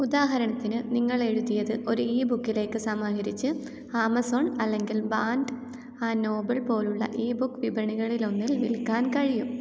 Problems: low volume